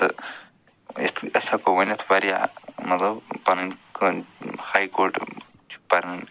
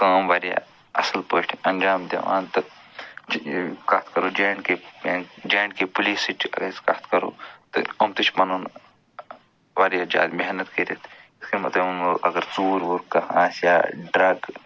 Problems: constant background noise